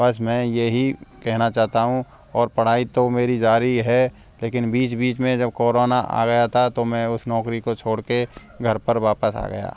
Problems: background sounds at intervals